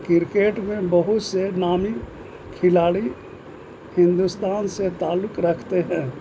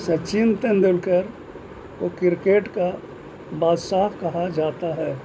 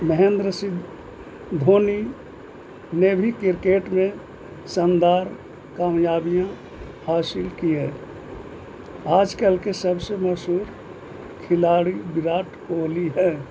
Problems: constant background noise